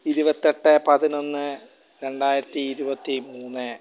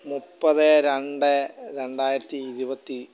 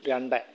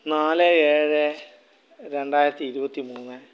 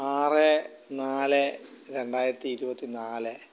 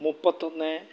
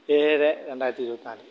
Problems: background sounds at intervals